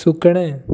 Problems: constant background noise